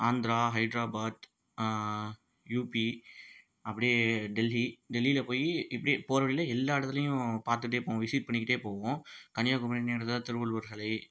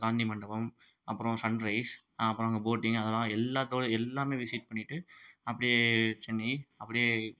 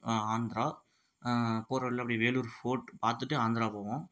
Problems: low volume